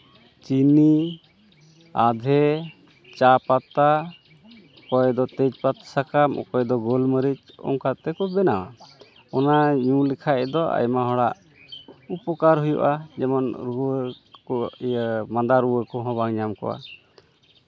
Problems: background sounds at intervals